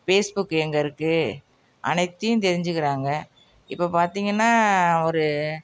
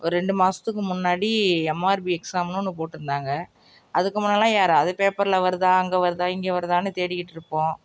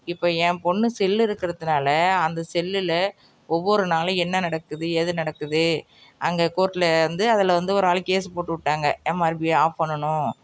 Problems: none marked